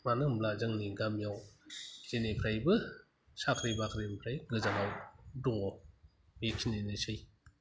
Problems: low volume